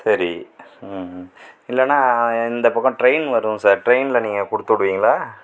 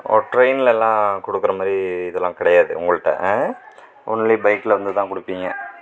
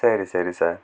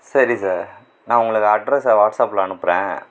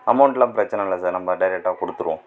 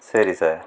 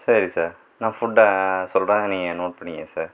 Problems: none marked